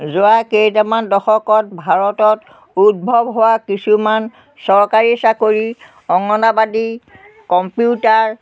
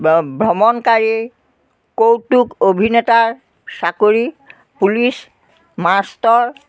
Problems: none marked